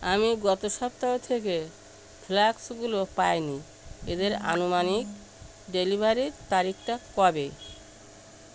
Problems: constant background noise